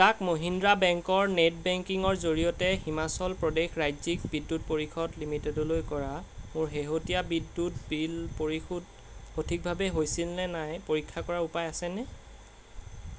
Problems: constant background noise